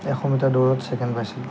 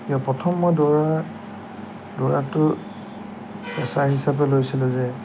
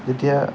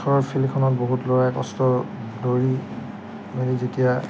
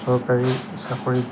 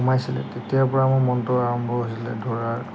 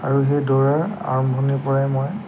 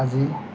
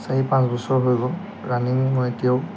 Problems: background sounds at intervals